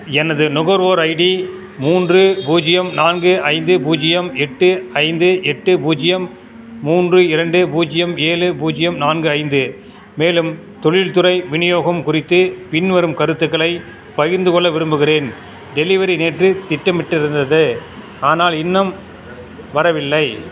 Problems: constant background noise